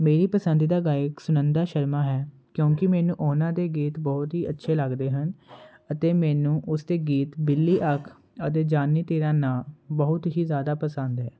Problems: constant background noise